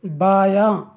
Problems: none marked